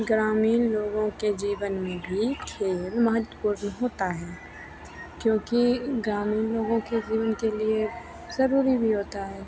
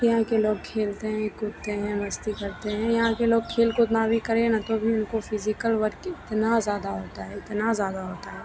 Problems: constant background noise